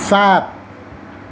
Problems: none marked